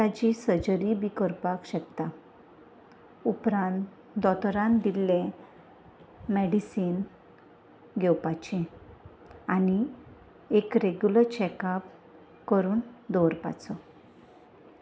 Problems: constant background noise